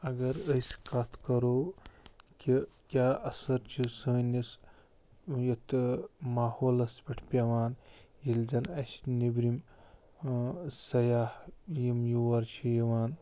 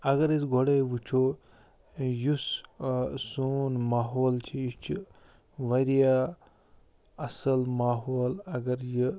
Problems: low volume